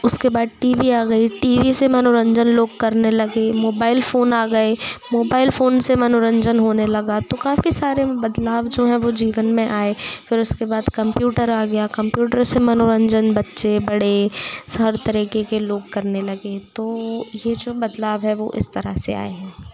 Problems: background sounds at intervals, continuous background conversations